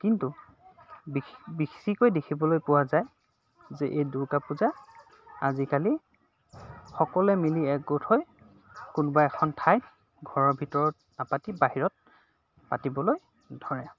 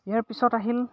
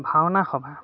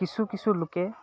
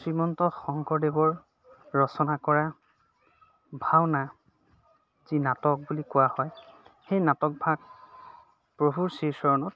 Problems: constant background noise, background conversations at intervals